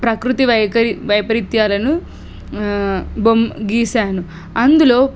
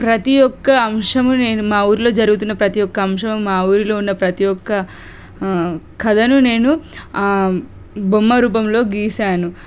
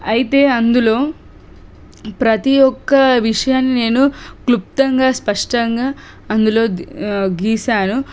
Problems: none marked